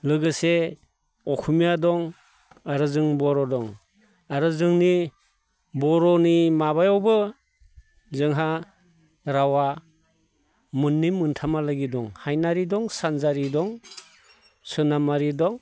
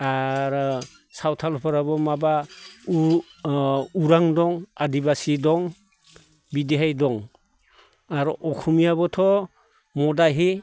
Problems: none marked